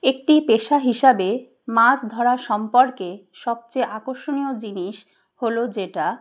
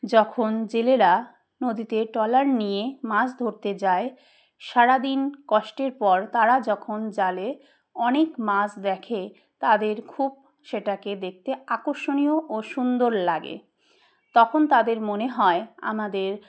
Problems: none marked